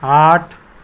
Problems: constant background noise